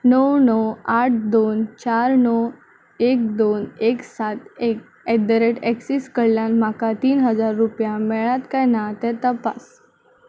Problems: none marked